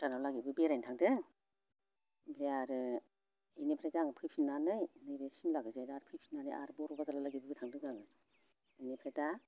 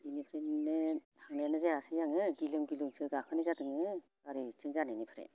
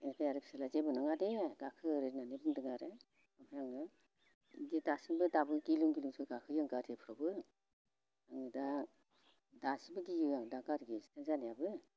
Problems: constant background noise